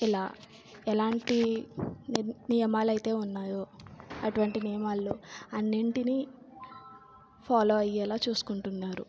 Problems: low volume